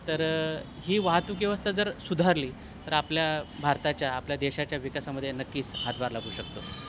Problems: constant background noise